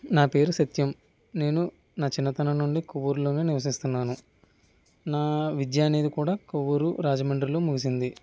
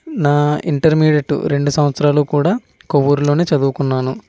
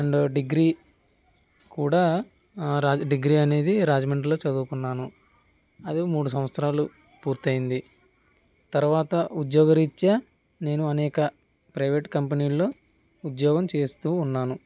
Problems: none marked